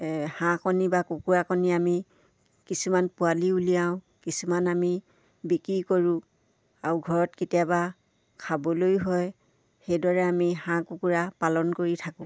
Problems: none marked